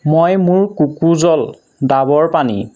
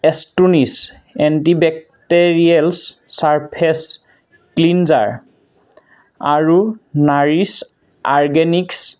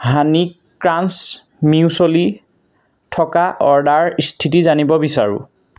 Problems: constant background noise